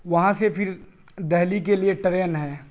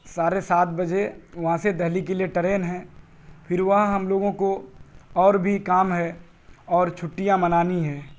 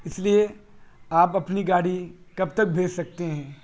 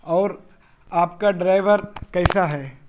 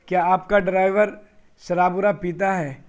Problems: constant background noise